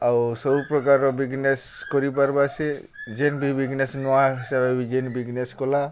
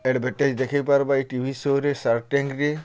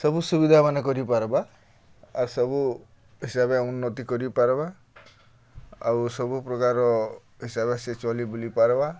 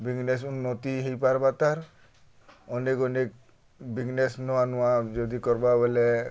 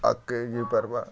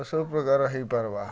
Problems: none marked